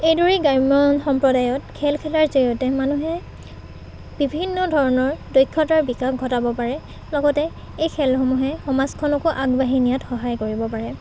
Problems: constant background noise, background conversations at intervals